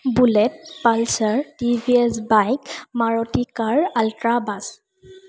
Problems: constant background noise